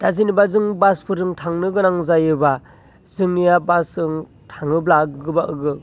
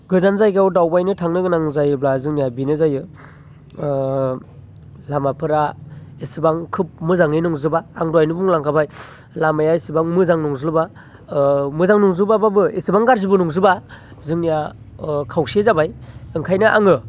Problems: constant background noise